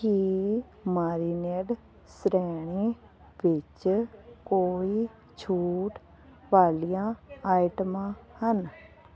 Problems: constant background noise